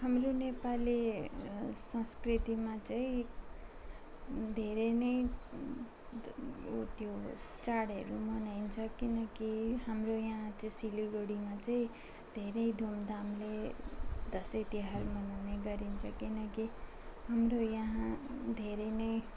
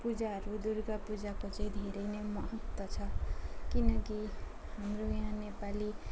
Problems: constant background noise, background conversations at intervals